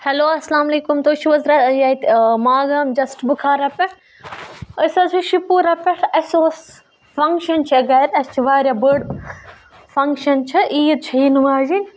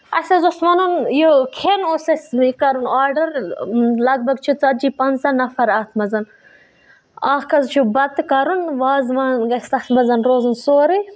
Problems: none marked